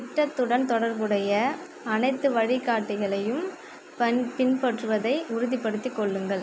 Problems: constant background noise